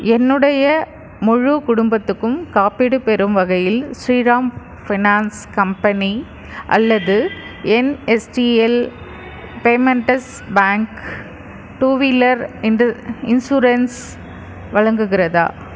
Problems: constant background noise